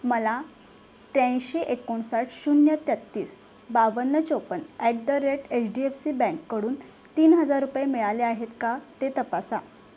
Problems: background sounds at intervals